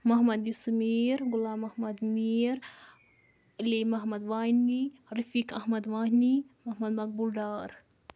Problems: constant background noise